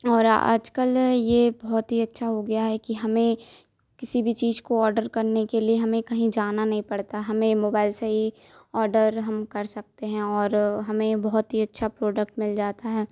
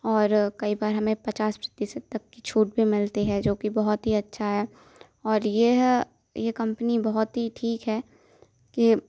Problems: constant background noise